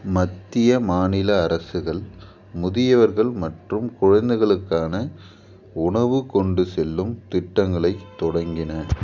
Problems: background sounds at intervals